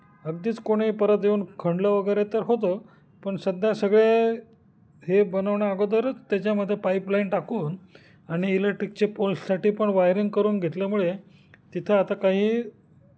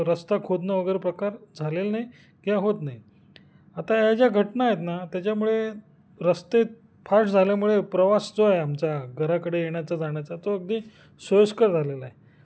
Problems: none marked